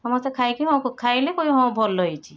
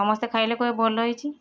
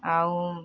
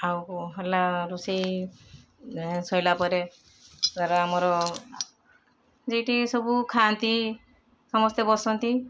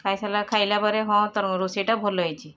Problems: none marked